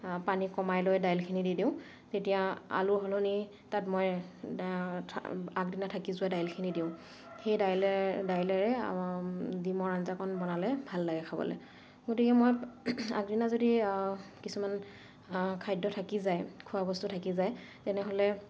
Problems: none marked